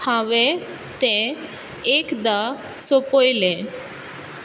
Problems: constant background noise